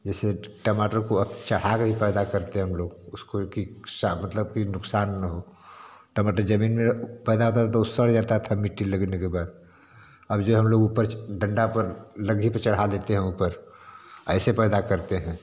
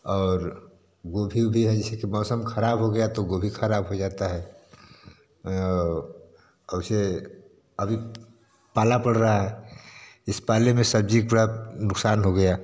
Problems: none marked